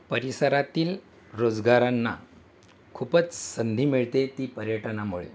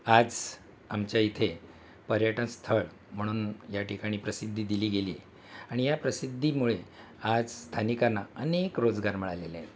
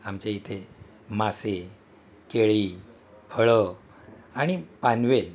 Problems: constant background noise, background conversations at intervals